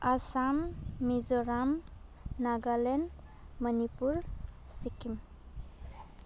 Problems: none marked